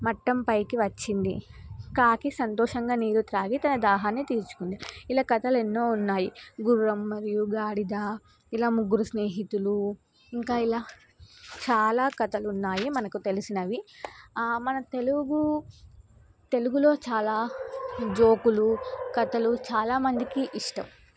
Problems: none marked